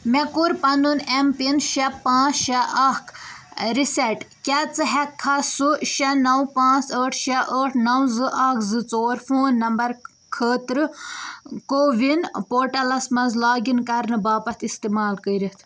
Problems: constant background noise